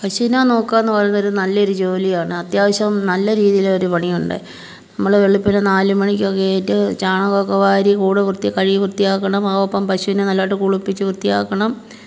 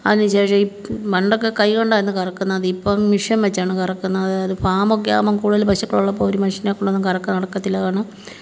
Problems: none marked